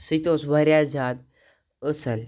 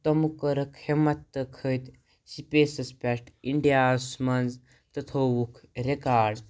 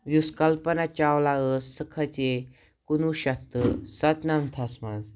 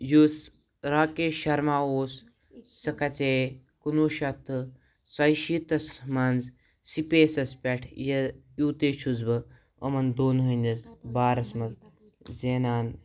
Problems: background sounds at intervals